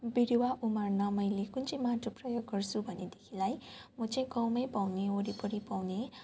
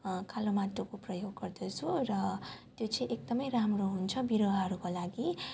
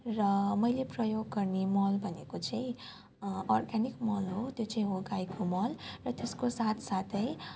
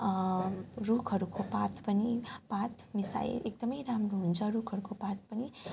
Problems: background conversations at intervals